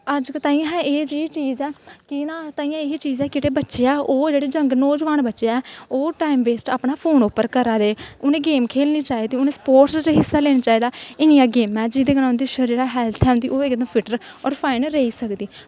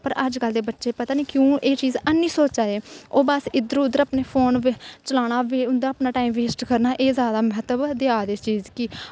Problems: constant background noise